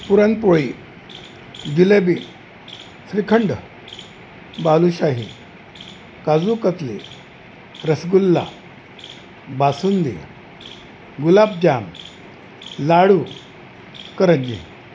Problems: constant background noise